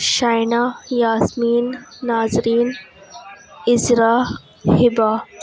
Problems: constant background noise